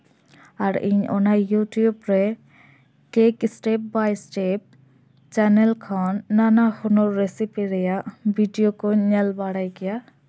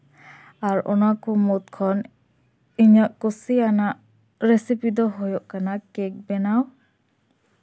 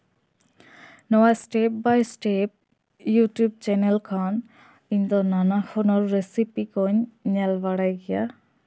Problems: none marked